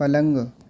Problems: background sounds at intervals, low volume